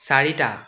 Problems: echo